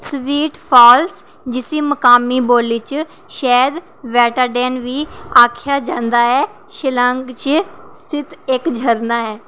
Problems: none marked